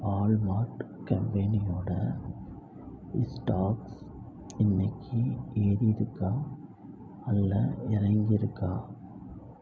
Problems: low volume